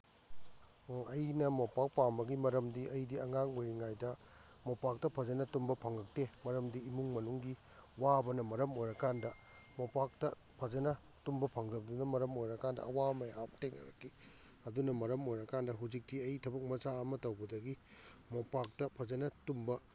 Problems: none marked